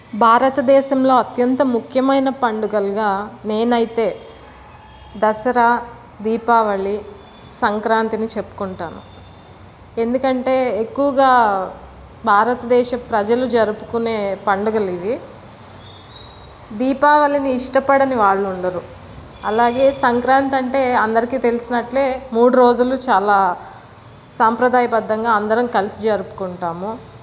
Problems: none marked